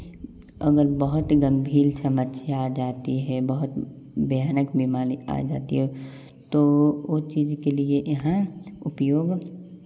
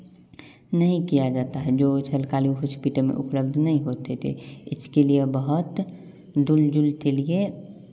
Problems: constant background noise, background conversations at intervals